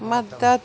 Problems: constant background noise